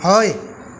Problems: constant background noise